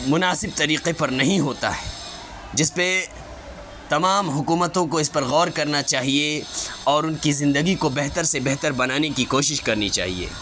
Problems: constant background noise